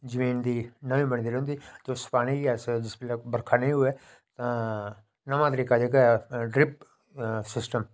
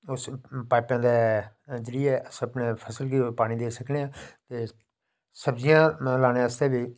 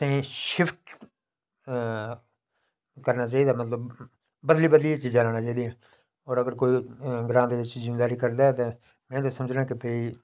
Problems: none marked